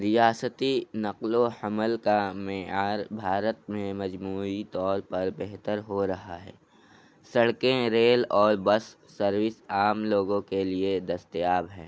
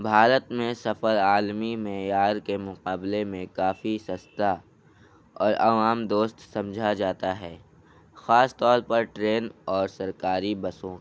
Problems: constant background noise